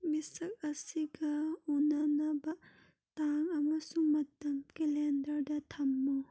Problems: none marked